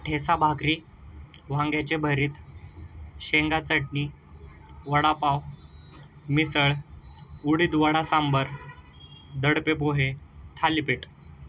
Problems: none marked